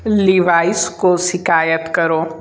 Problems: none marked